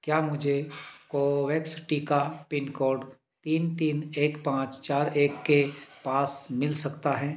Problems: constant background noise